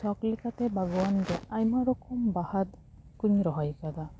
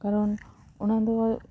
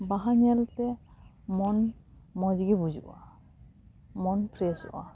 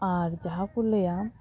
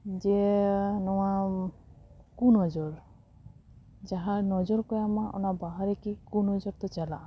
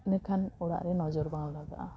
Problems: background sounds at intervals, background conversations at intervals